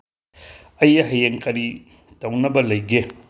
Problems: background sounds at intervals